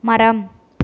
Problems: none marked